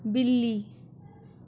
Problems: none marked